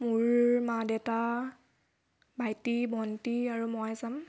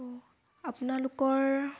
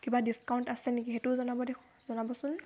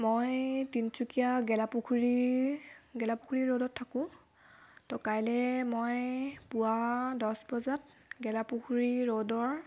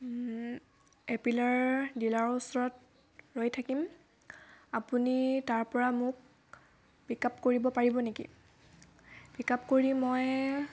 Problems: constant background noise, background conversations at intervals